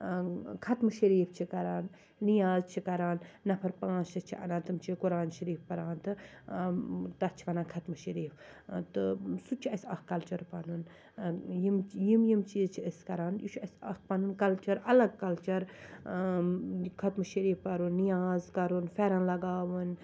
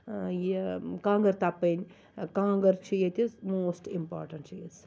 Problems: constant background noise, low volume